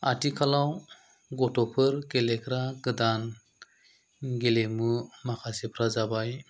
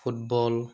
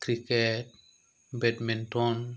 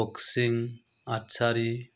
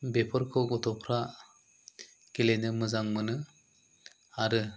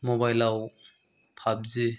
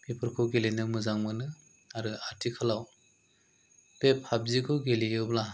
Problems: low volume